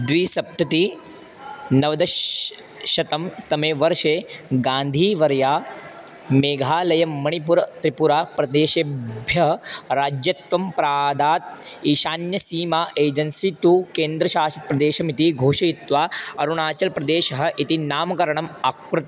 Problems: constant background noise